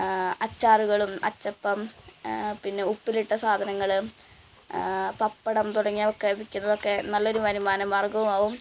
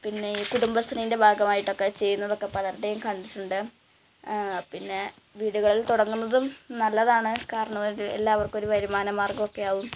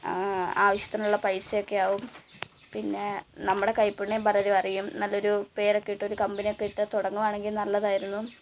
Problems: constant background noise, low volume